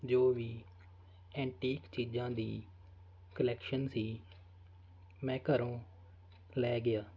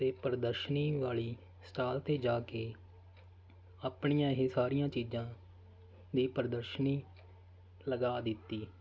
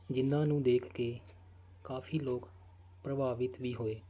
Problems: constant background noise